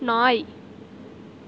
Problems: constant background noise